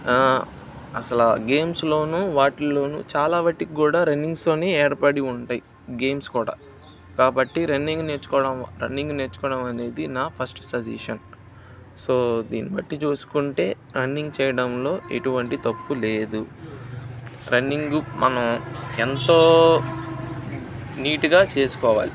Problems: none marked